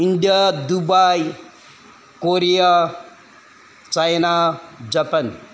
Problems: background sounds at intervals